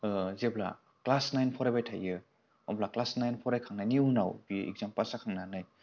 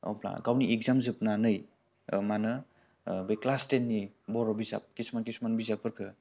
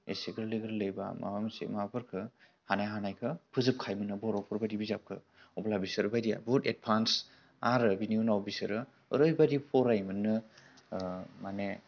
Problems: none marked